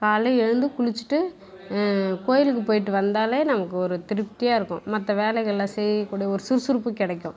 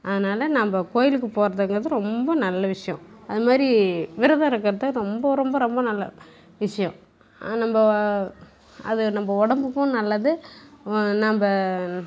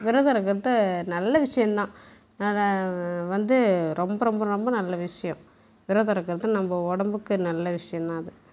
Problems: none marked